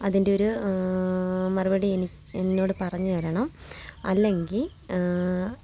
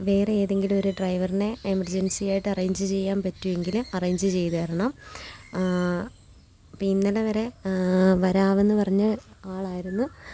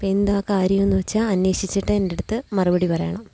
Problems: constant background noise